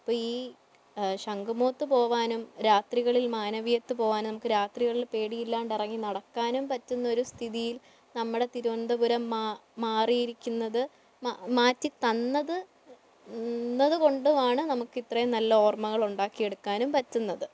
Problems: low volume